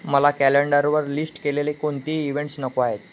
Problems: none marked